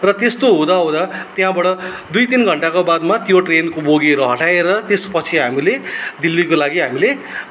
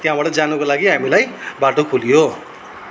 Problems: none marked